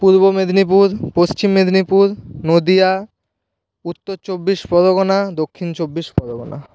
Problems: none marked